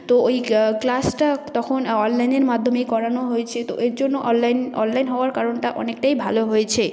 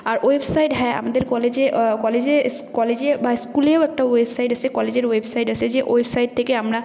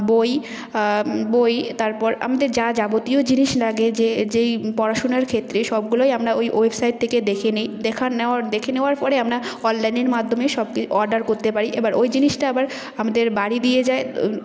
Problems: none marked